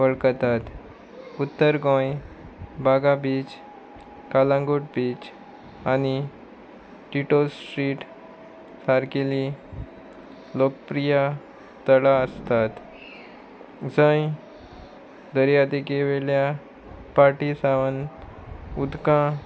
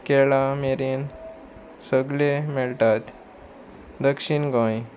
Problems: constant background noise